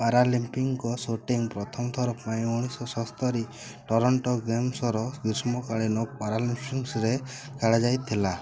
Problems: constant background noise